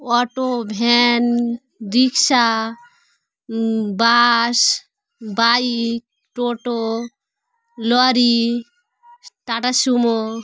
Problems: constant background noise